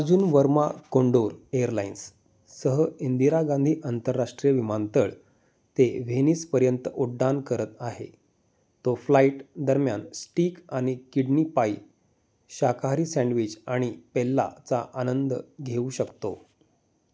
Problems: none marked